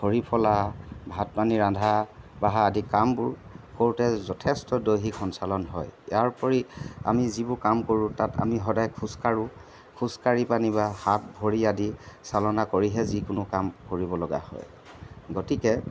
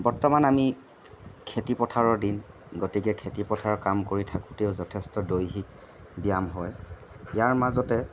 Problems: background sounds at intervals